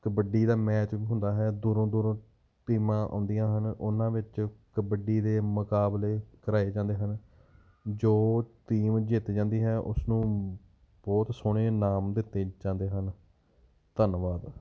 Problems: background sounds at intervals